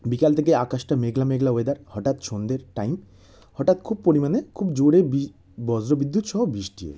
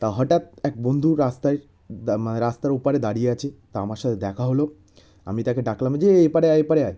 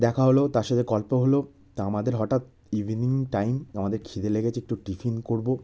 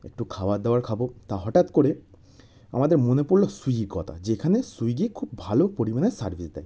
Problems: none marked